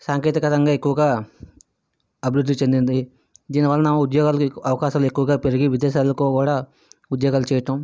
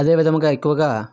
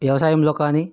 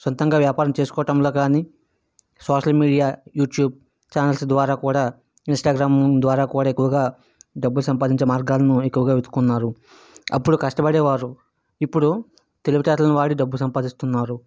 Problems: background sounds at intervals